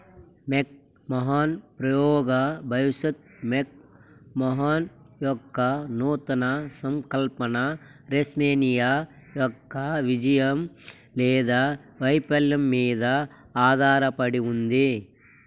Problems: constant background noise